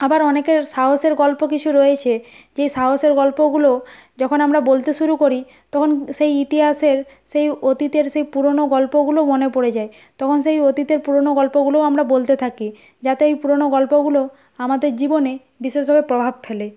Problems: constant background noise